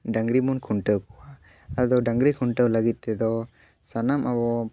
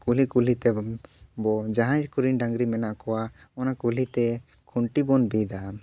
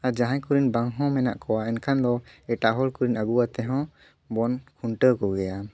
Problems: none marked